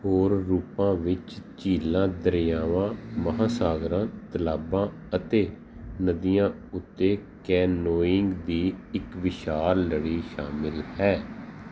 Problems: none marked